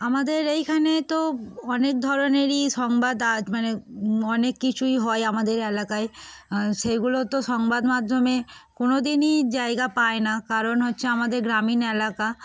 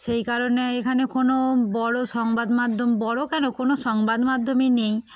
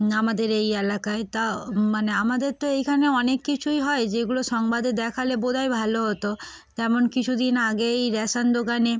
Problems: none marked